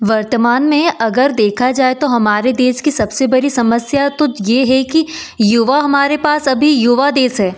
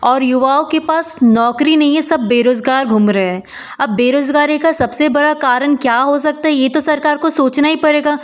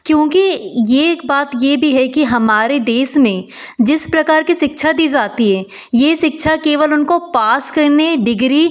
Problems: background sounds at intervals